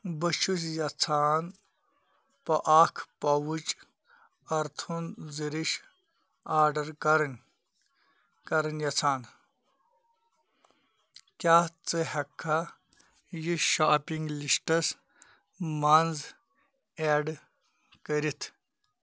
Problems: none marked